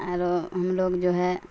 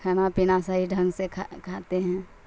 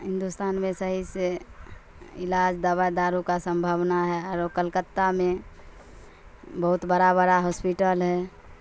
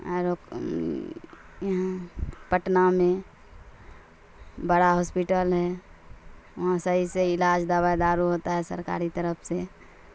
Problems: constant background noise